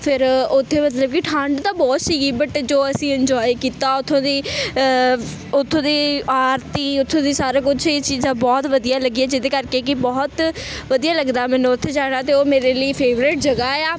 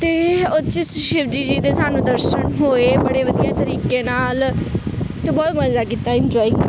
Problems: constant background noise